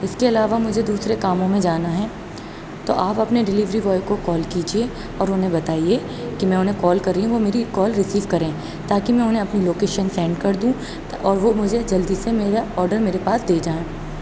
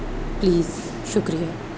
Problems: none marked